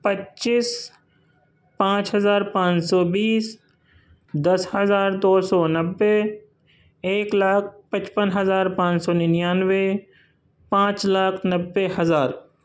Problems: none marked